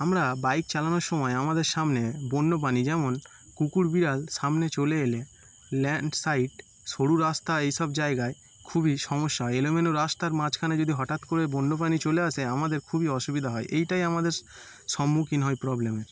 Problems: constant background noise